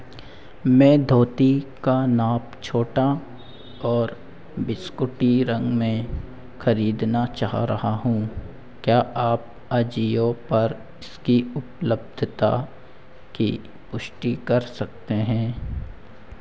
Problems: constant background noise, echo